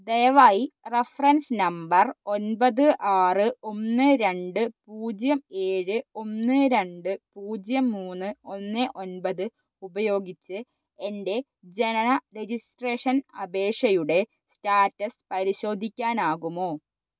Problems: none marked